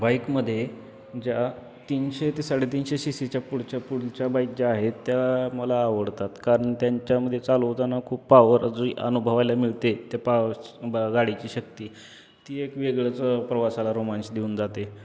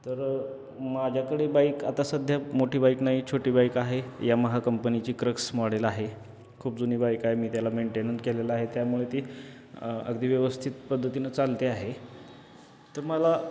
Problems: constant background noise